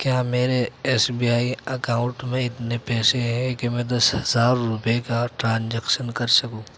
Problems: background sounds at intervals